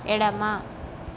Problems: constant background noise